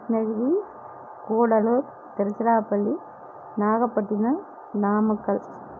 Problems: none marked